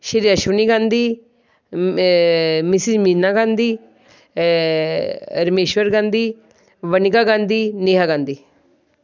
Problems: background sounds at intervals